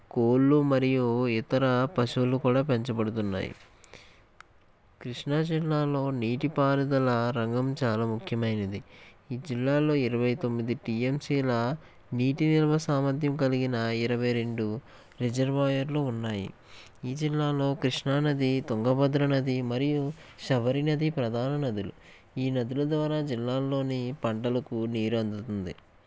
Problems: none marked